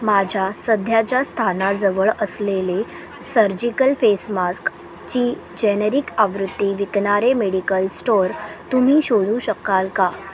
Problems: none marked